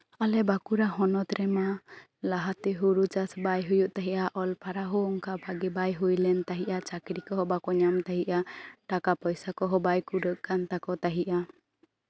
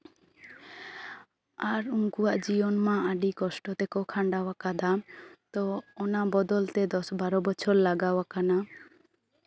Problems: none marked